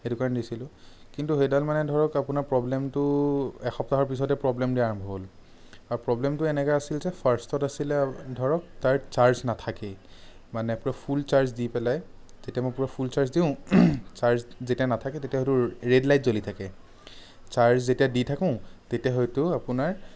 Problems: none marked